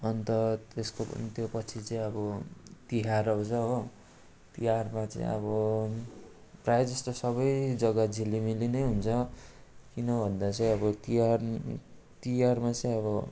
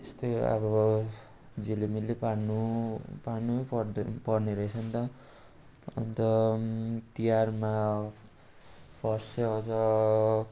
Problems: constant background noise, continuous background conversations